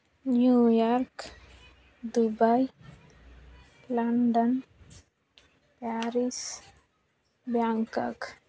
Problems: none marked